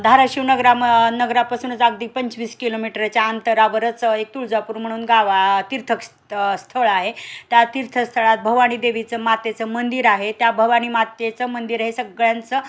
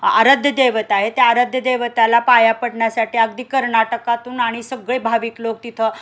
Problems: constant background noise, background conversations at intervals